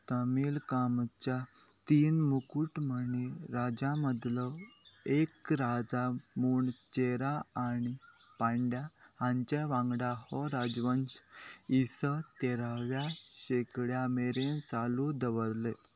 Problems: constant background noise